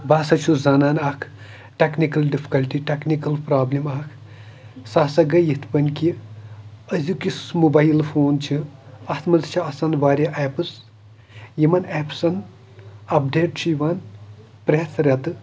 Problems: background sounds at intervals, background conversations at intervals